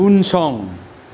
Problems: constant background noise